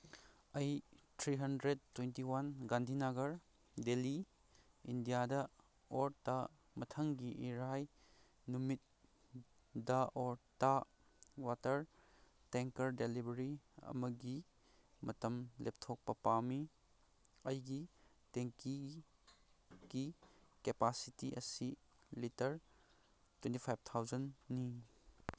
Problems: none marked